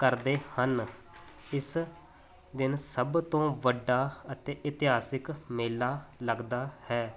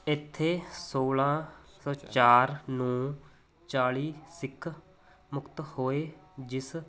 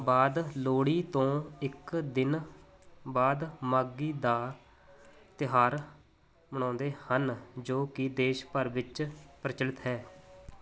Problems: none marked